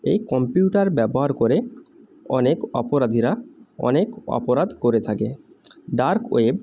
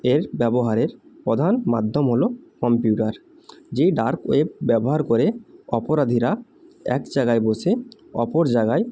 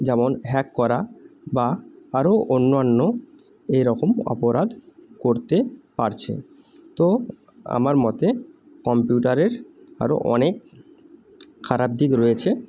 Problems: none marked